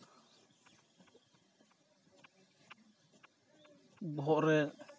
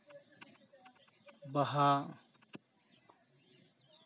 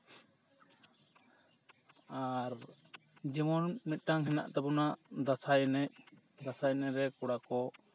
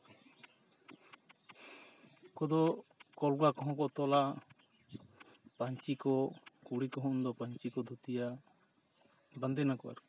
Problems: continuous background conversations